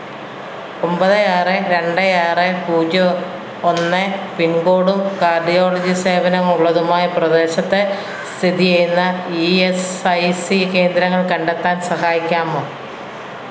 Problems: none marked